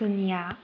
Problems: constant background noise